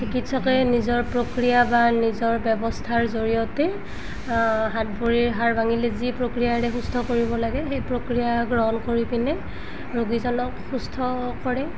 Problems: background sounds at intervals